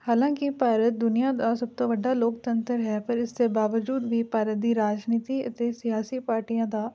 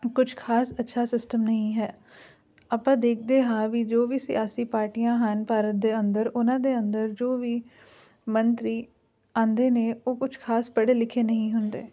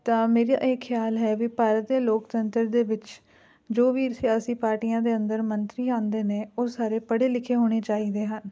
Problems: background conversations at intervals